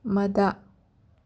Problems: none marked